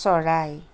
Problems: none marked